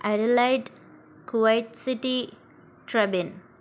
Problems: constant background noise